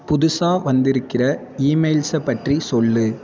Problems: constant background noise